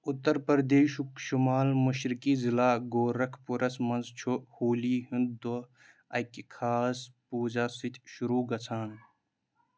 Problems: background sounds at intervals